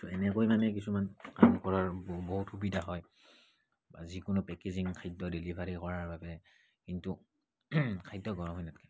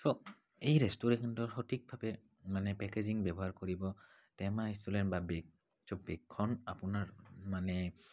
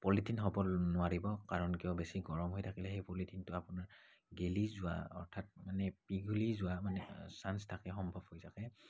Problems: background sounds at intervals, low volume